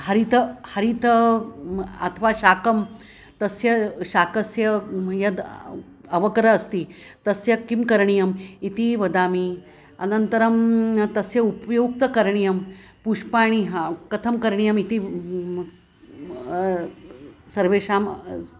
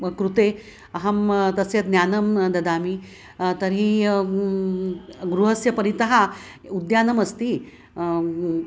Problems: constant background noise